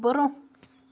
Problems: none marked